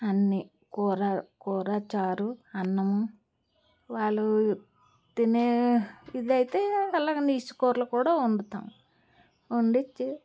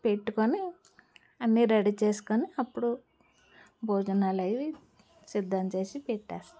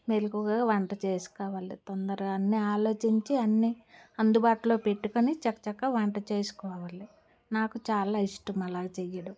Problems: background sounds at intervals